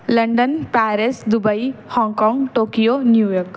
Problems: none marked